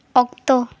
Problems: none marked